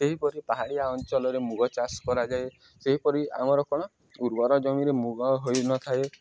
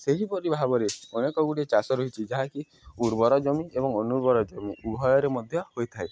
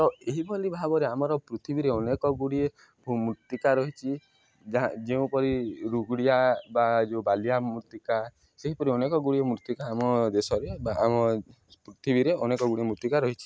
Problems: background sounds at intervals